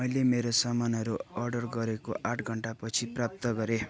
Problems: continuous background conversations